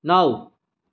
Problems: none marked